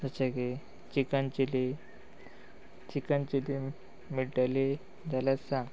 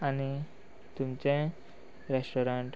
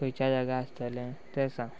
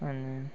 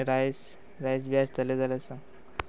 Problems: background sounds at intervals